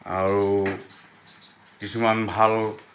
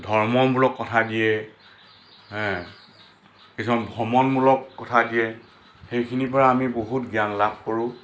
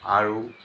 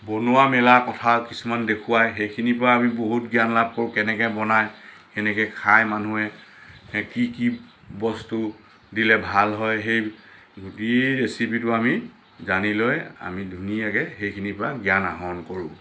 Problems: constant background noise